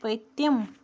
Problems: none marked